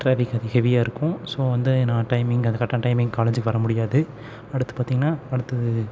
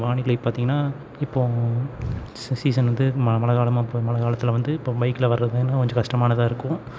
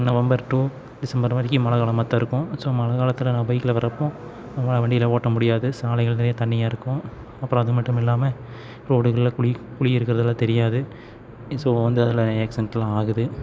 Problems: none marked